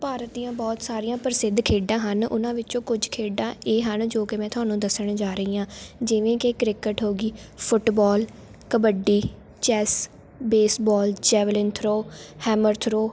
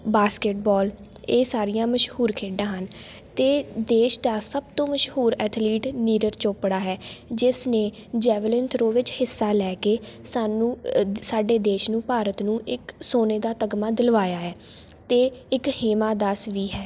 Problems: constant background noise